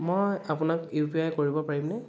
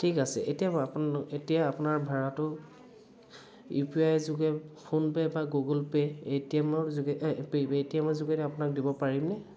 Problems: background sounds at intervals, background conversations at intervals